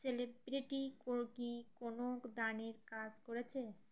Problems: none marked